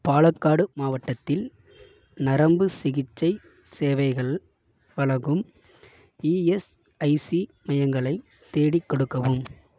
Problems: none marked